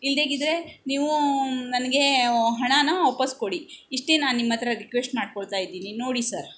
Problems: background sounds at intervals